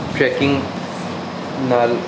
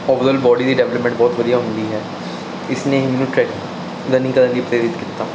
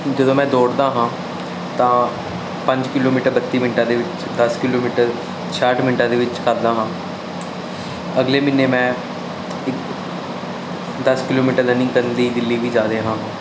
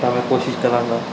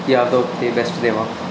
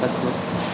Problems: constant background noise